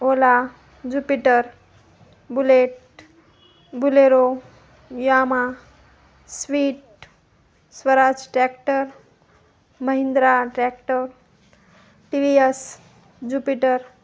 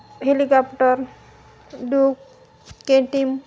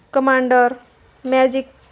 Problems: none marked